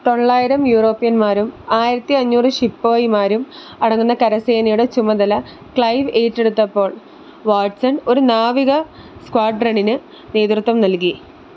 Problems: background sounds at intervals